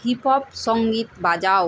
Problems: background sounds at intervals